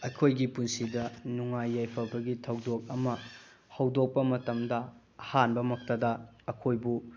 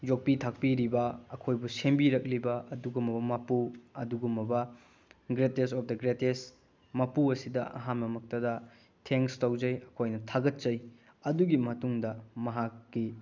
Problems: low volume